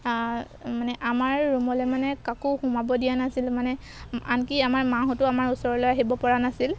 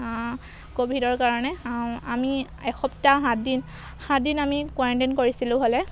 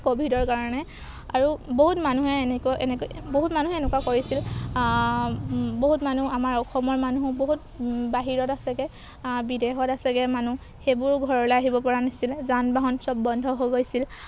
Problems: background sounds at intervals